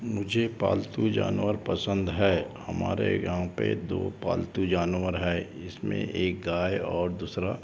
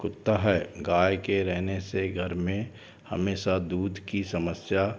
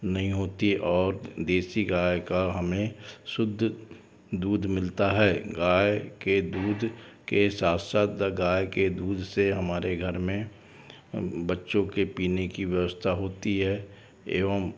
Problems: background sounds at intervals